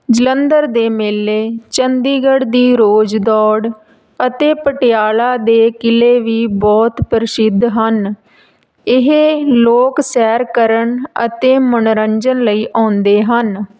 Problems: none marked